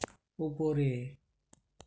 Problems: none marked